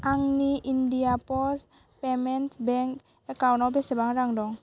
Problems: constant background noise